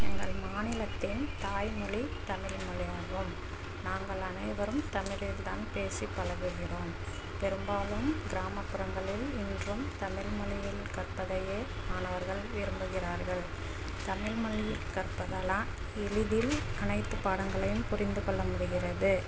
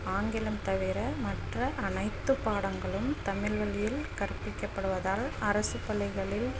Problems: constant background noise, low volume